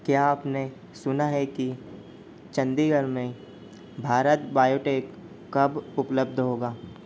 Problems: none marked